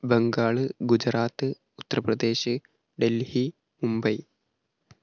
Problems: none marked